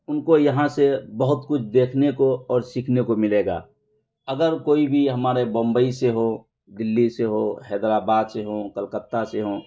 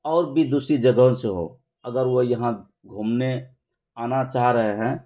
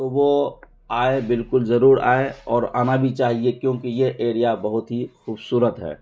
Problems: constant background noise